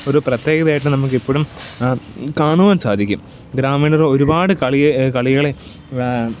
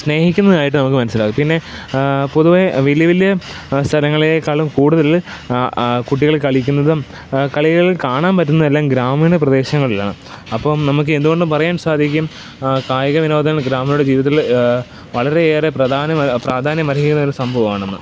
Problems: constant background noise